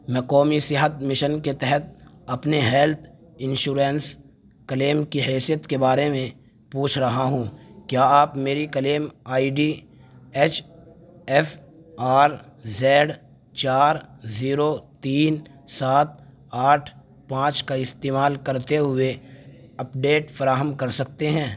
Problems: none marked